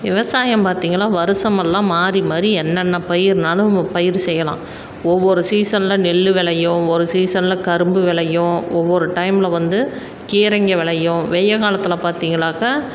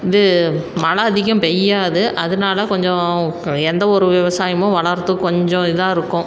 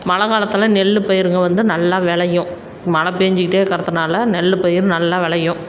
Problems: background sounds at intervals